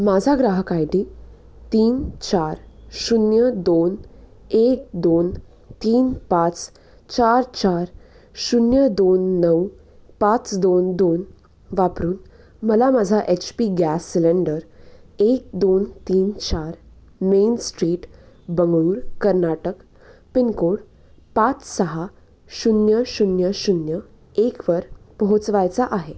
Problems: none marked